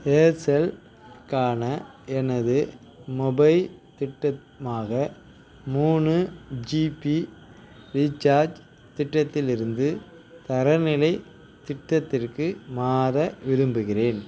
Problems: constant background noise